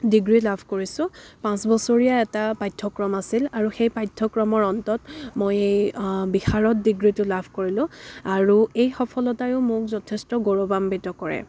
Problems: background sounds at intervals, background conversations at intervals